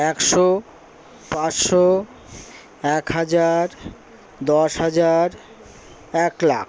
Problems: constant background noise